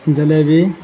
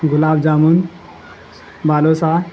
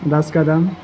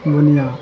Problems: constant background noise